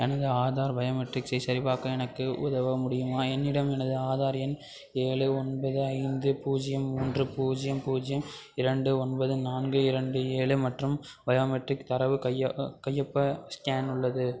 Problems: background sounds at intervals, background conversations at intervals